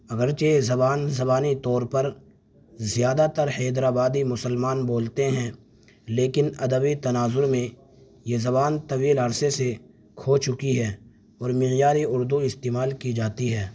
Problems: none marked